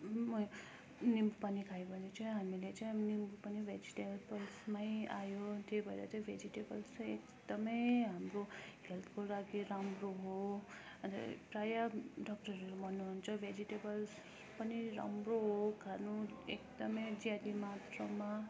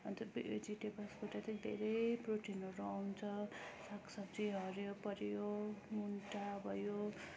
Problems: constant background noise, low volume